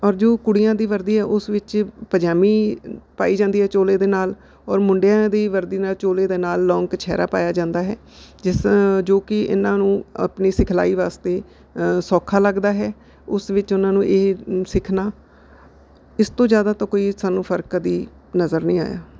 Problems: none marked